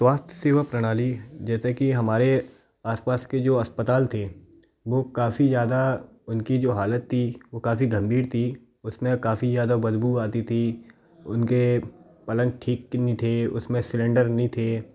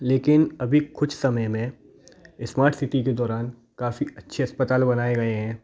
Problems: background sounds at intervals, background conversations at intervals